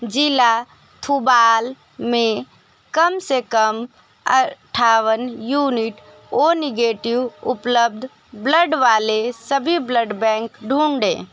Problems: constant background noise